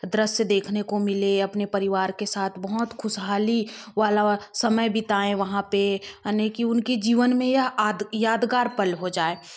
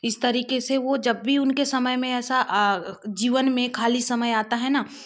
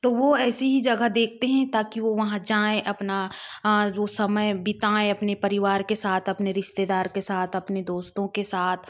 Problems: none marked